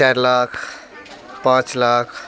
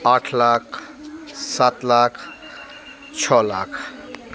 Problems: constant background noise, background conversations at intervals